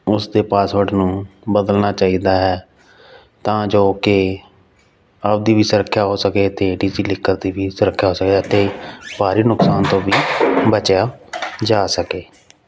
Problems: background sounds at intervals